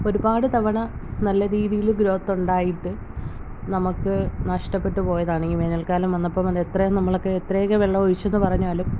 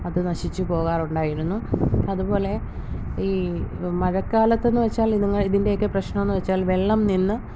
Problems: constant background noise